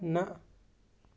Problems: none marked